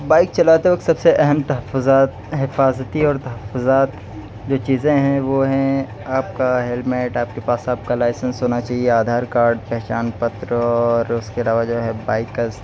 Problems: none marked